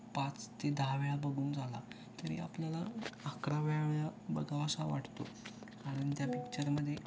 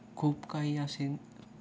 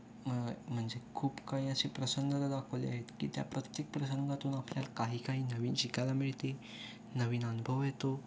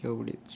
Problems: constant background noise, background conversations at intervals